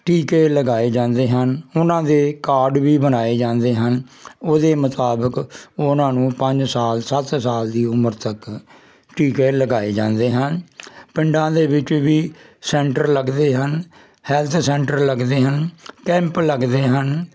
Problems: constant background noise